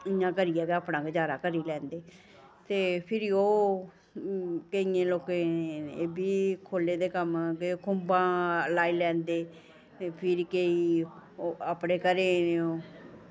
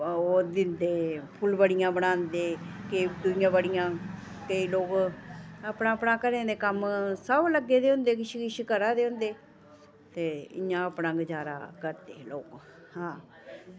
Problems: constant background noise